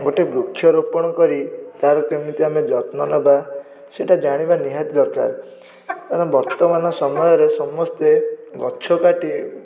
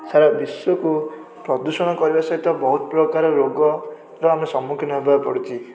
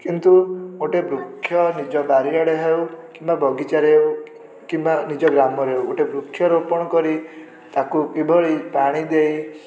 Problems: background sounds at intervals, background conversations at intervals